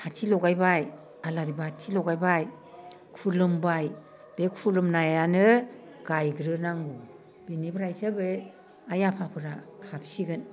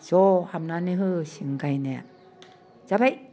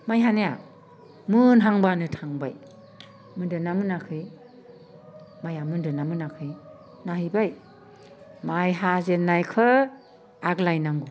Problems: none marked